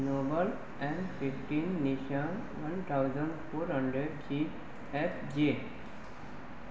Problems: constant background noise, low volume